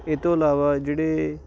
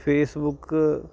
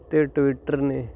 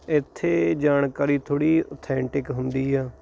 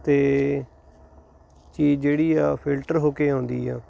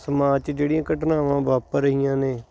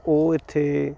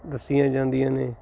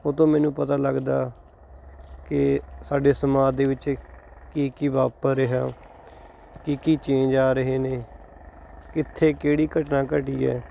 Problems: none marked